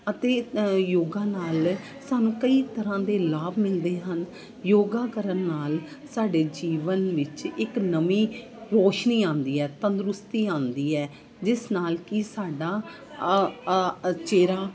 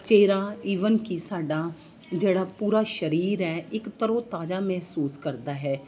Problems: constant background noise, background conversations at intervals